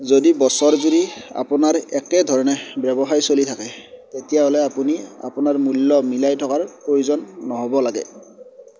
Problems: background sounds at intervals